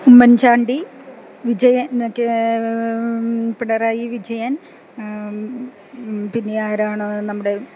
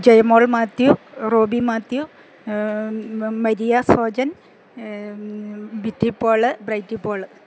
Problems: background sounds at intervals, background conversations at intervals